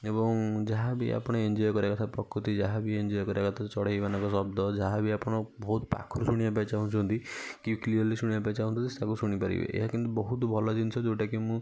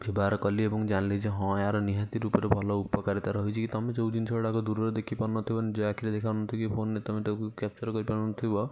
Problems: none marked